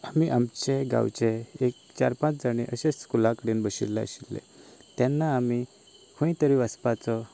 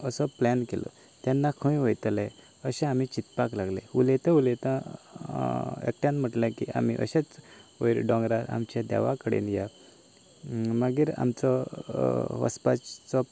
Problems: none marked